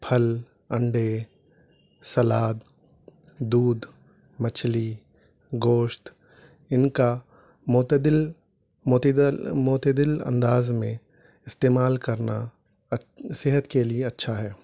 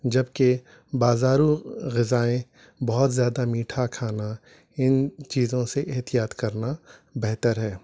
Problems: none marked